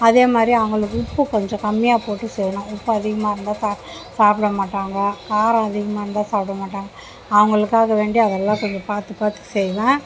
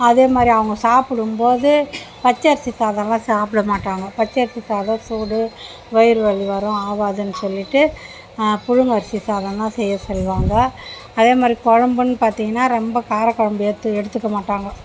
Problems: background sounds at intervals, background conversations at intervals